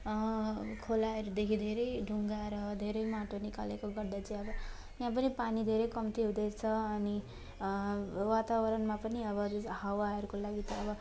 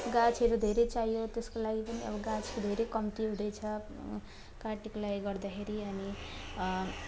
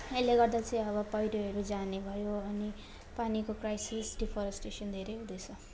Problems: constant background noise, continuous background conversations